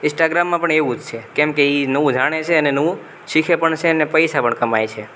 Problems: none marked